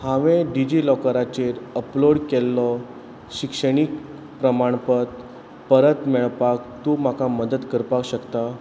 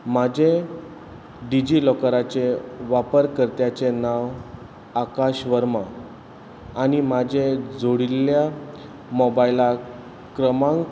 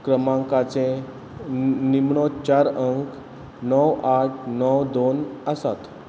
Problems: background sounds at intervals